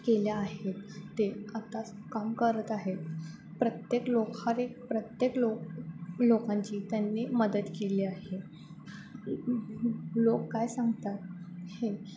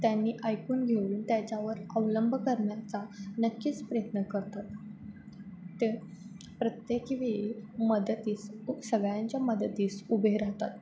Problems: constant background noise